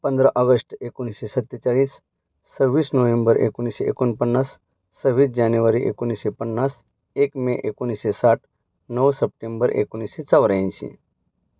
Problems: none marked